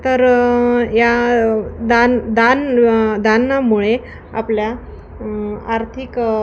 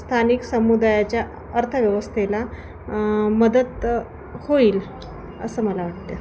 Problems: constant background noise, continuous background conversations